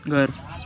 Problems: constant background noise